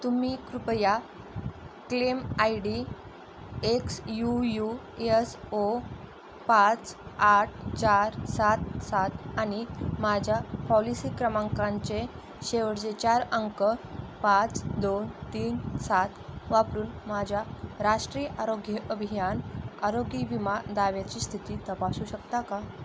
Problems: constant background noise